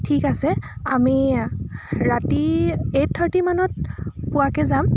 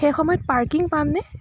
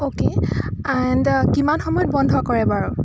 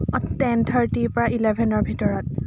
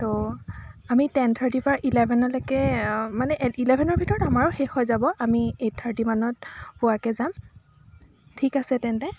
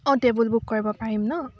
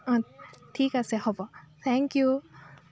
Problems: continuous background conversations